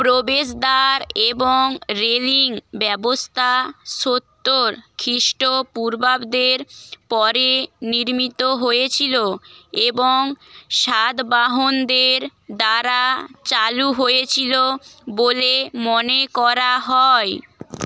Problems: constant background noise